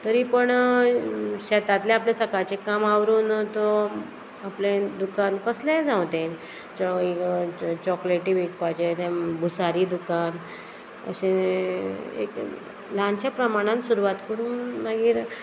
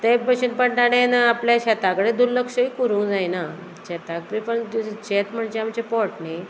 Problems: none marked